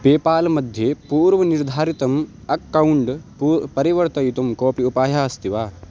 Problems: constant background noise